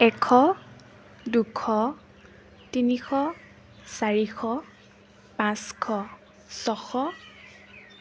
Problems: none marked